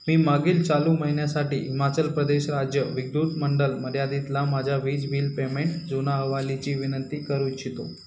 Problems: constant background noise